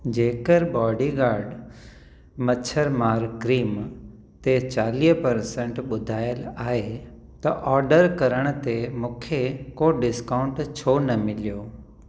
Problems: constant background noise, echo